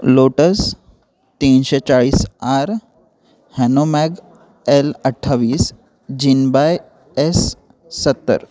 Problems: continuous background conversations